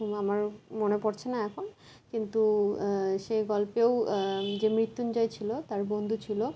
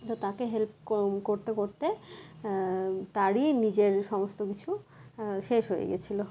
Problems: none marked